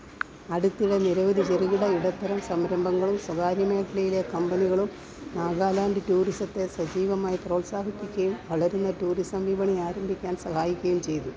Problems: background sounds at intervals